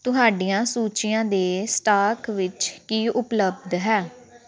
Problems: background sounds at intervals